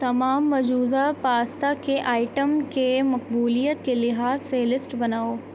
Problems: constant background noise